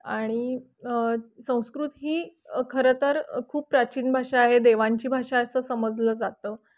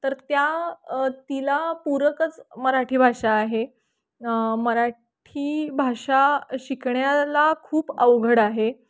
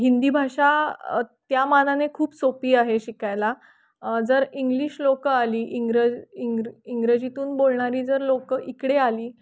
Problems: constant background noise